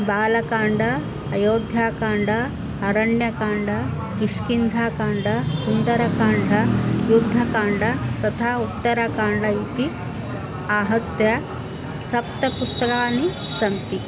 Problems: background sounds at intervals